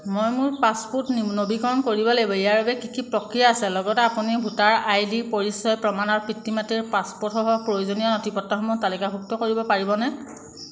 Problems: constant background noise